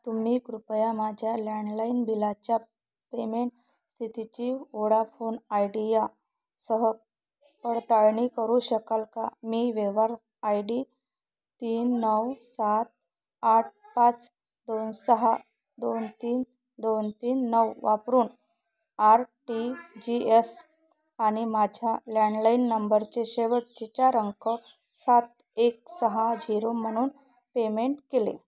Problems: none marked